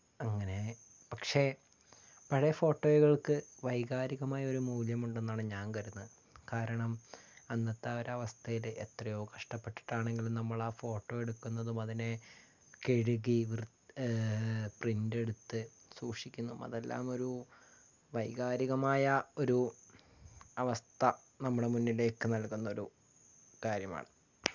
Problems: none marked